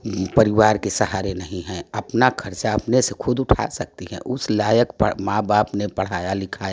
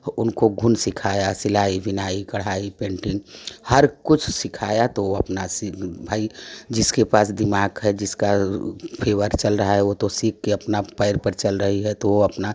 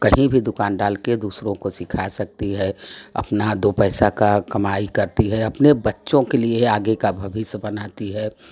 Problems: none marked